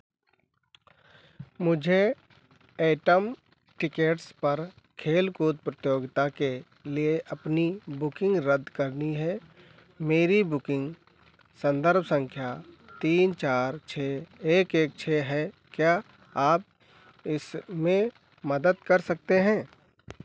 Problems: none marked